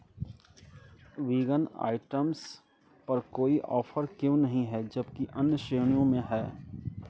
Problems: continuous background conversations